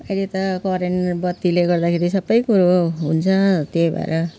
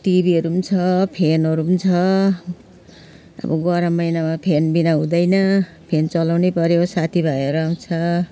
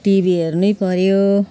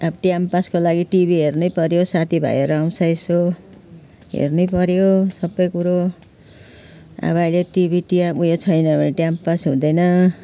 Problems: constant background noise